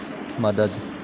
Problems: constant background noise